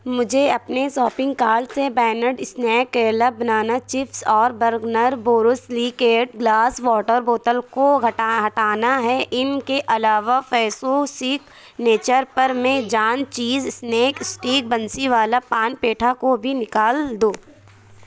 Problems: none marked